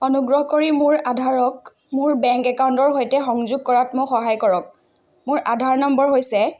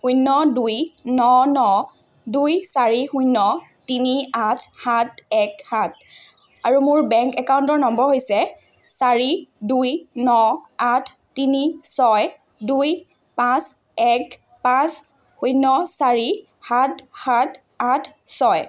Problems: none marked